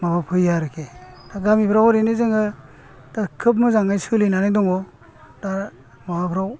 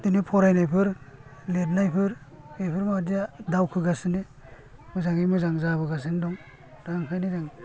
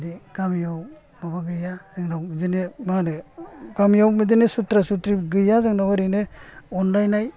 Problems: low volume